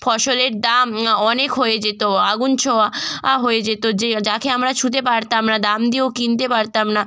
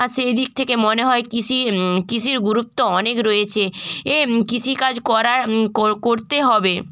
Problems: none marked